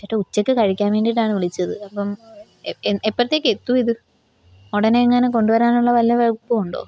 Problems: none marked